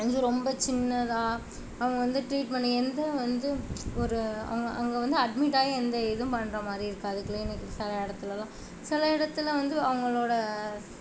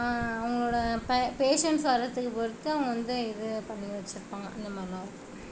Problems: constant background noise